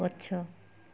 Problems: low volume